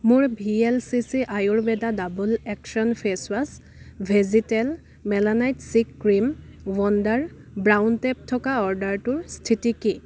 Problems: none marked